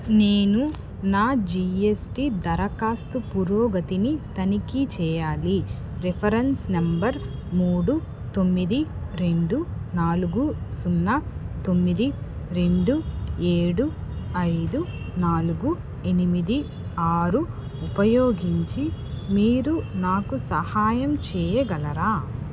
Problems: constant background noise